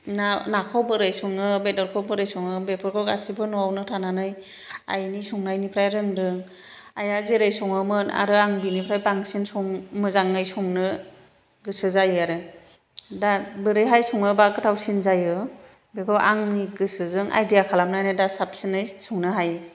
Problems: background sounds at intervals, low volume